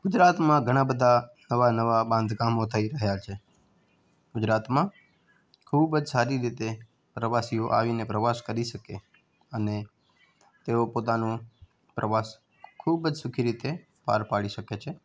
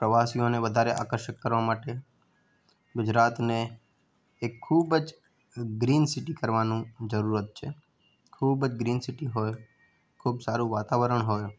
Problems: background sounds at intervals